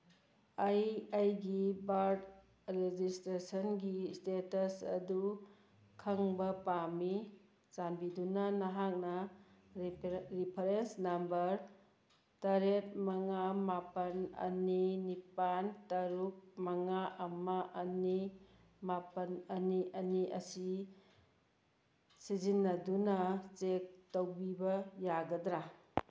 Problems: background sounds at intervals